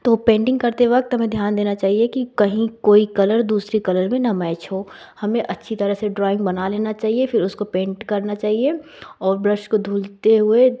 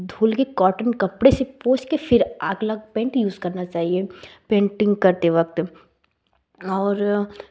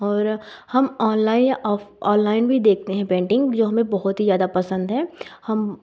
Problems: none marked